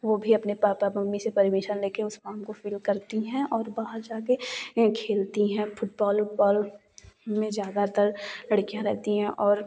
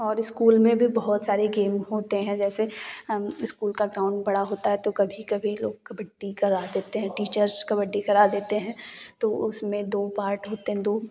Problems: none marked